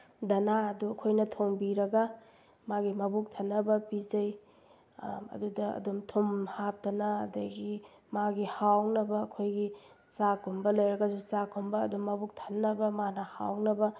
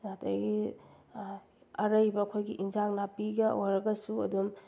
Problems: none marked